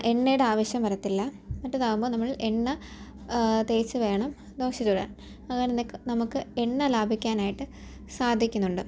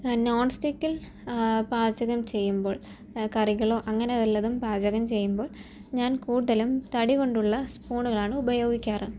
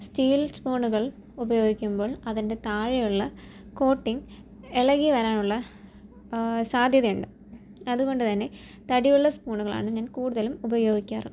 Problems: low volume